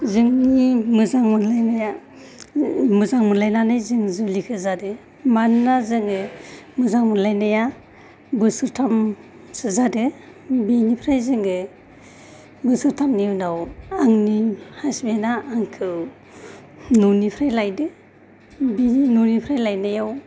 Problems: none marked